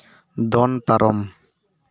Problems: none marked